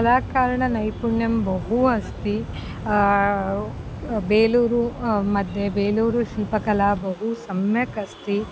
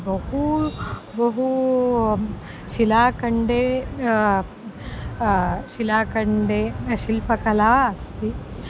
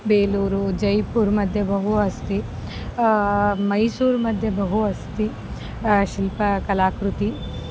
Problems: constant background noise